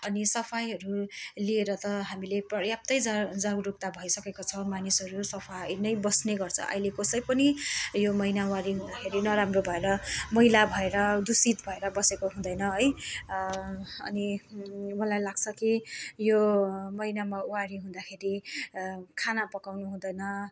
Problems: none marked